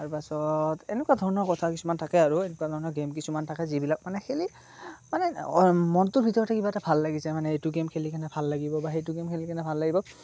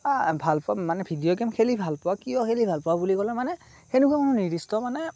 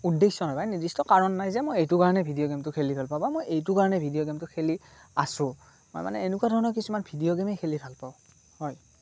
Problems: constant background noise